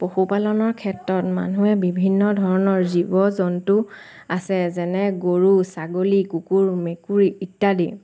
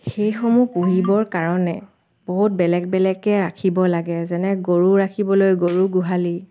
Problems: constant background noise